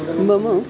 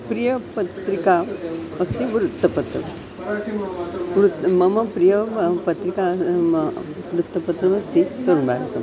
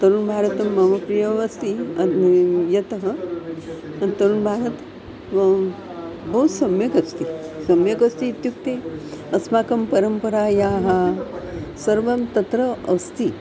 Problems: constant background noise, continuous background conversations